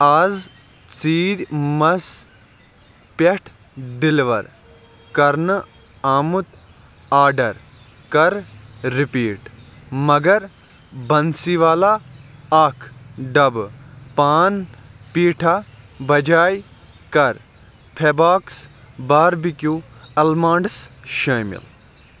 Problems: none marked